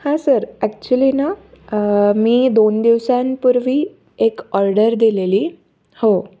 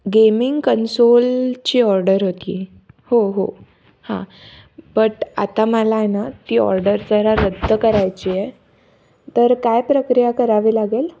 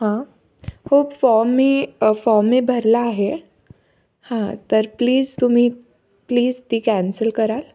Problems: none marked